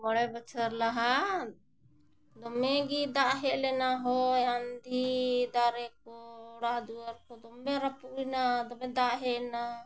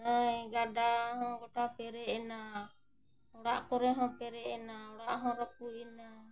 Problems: none marked